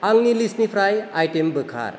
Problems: none marked